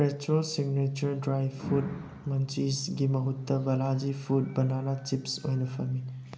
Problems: background sounds at intervals